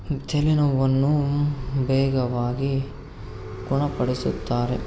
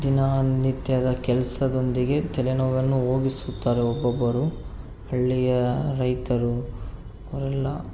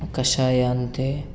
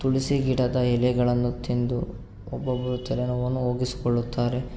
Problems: none marked